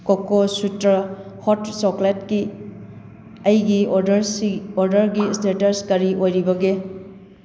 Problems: background sounds at intervals